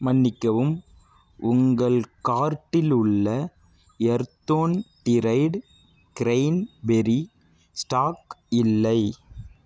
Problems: none marked